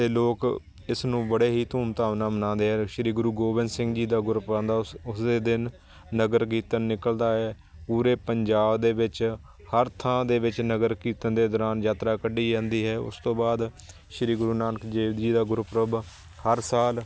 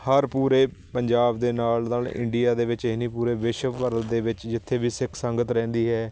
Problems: constant background noise